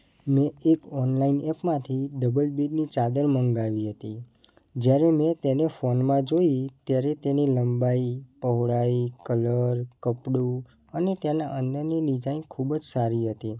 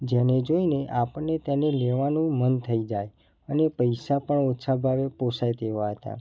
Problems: constant background noise